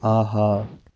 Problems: background sounds at intervals